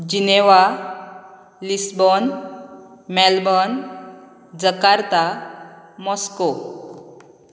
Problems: none marked